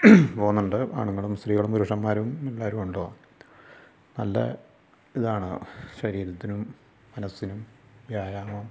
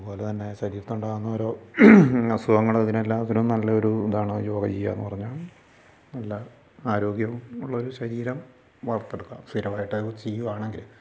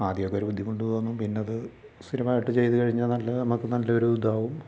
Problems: low volume